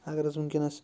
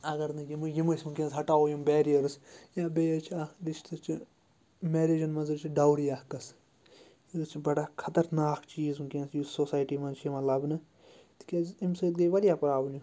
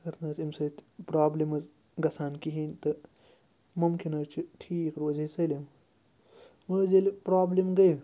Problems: low volume